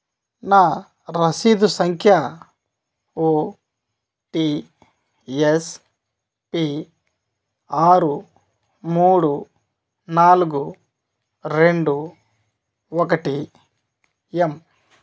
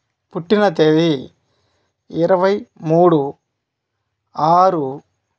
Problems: none marked